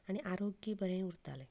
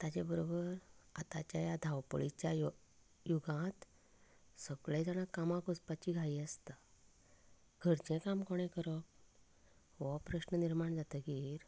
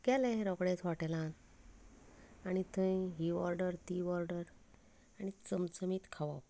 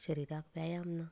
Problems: none marked